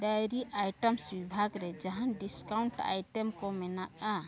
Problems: continuous background conversations